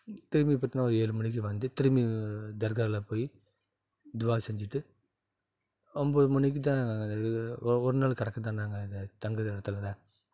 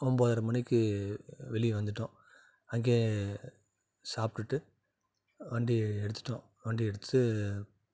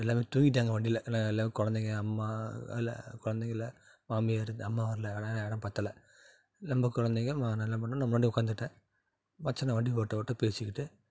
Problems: none marked